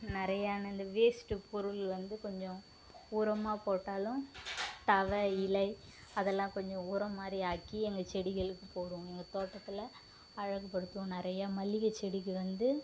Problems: constant background noise